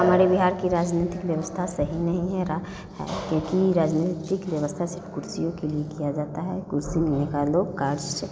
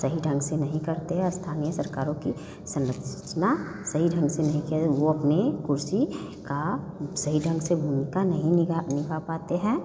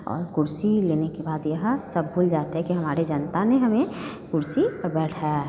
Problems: none marked